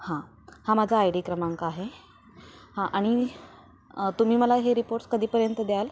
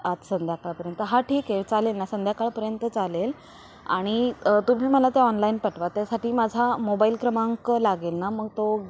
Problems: none marked